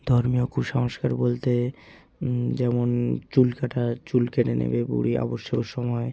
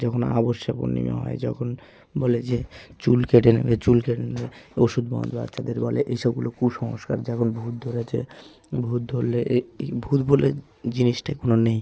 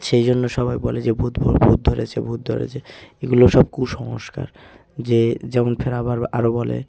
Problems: constant background noise, background conversations at intervals